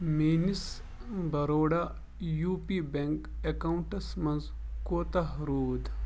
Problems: background sounds at intervals